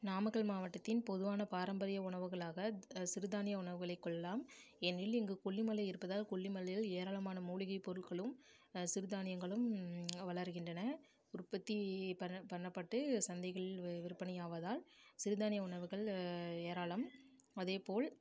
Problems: low volume